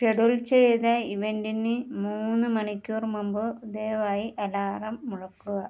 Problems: low volume